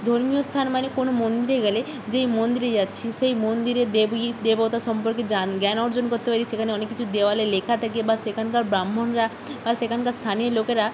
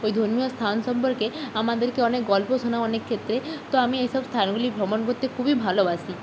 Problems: constant background noise